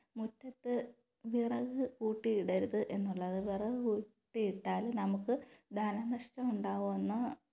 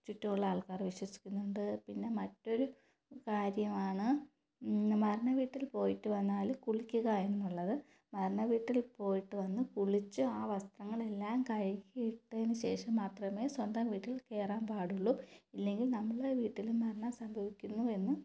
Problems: low volume